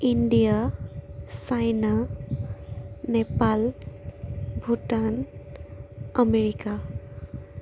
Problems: constant background noise